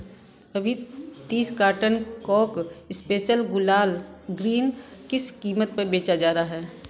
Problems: background sounds at intervals